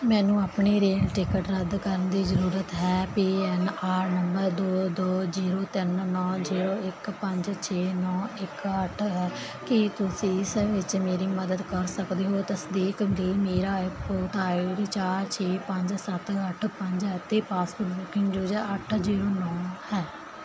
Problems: background conversations at intervals